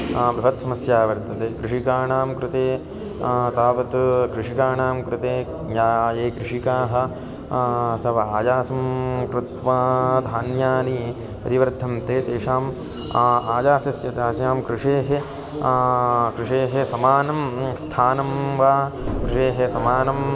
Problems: constant background noise, continuous background conversations